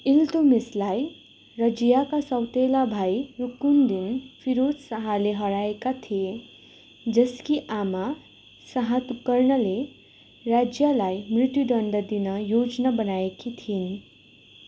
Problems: constant background noise